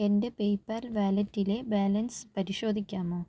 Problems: low volume